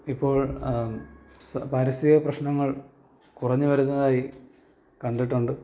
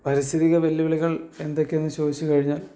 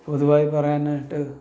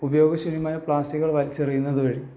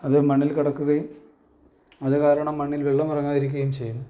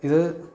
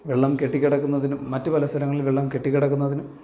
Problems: none marked